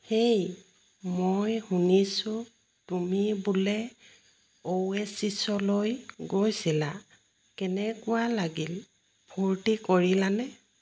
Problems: constant background noise